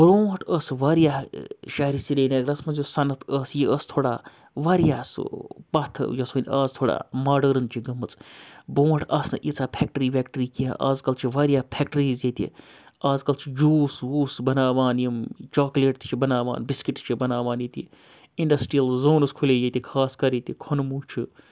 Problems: background sounds at intervals